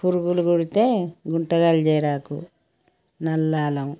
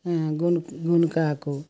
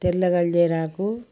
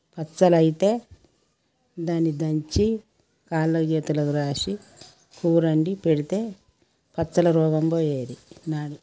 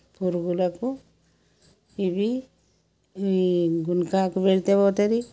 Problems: background sounds at intervals